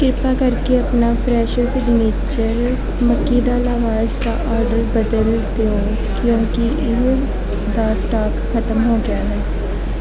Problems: none marked